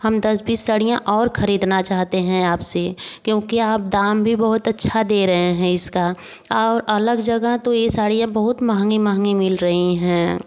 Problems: none marked